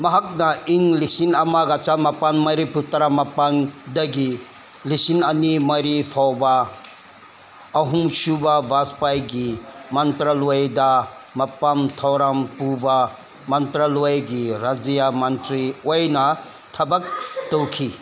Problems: constant background noise